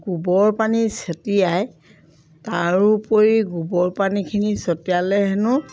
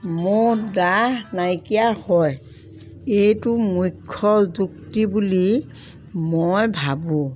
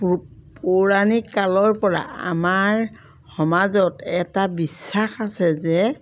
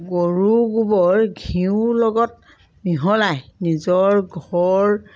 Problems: background sounds at intervals